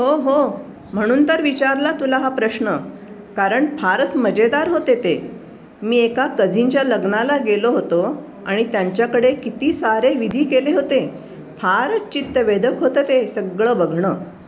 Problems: none marked